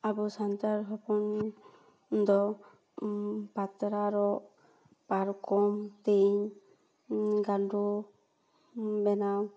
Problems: background sounds at intervals, echo